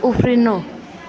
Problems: continuous background conversations